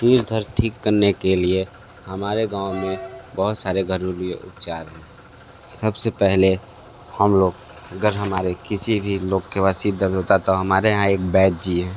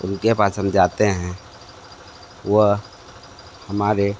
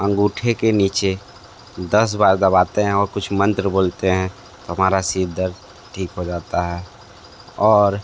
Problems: constant background noise